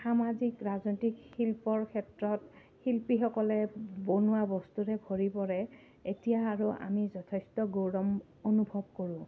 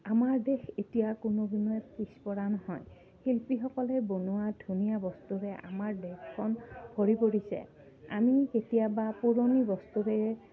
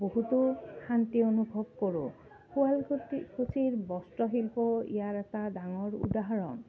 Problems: low volume